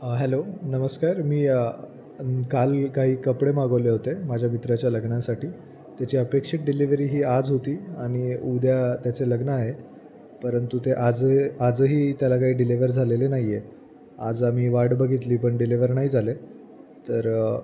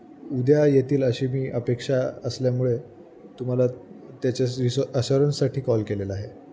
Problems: none marked